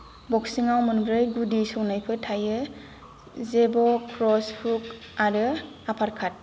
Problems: background sounds at intervals